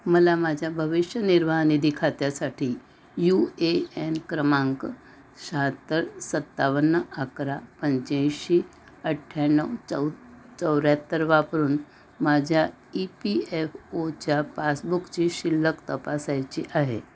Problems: constant background noise